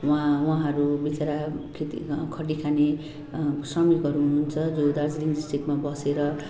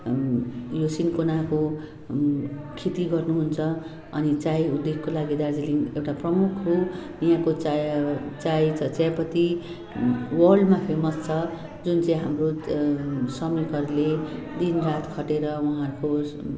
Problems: continuous background conversations